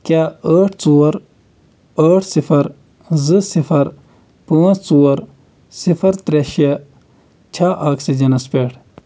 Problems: constant background noise